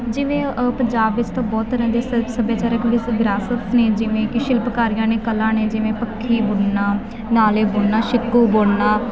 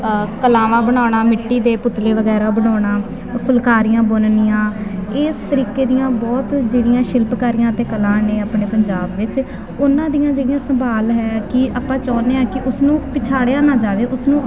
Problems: constant background noise